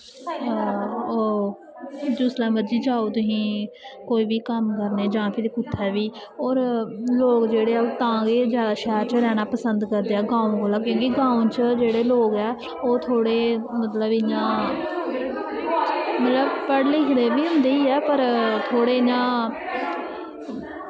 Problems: constant background noise, echo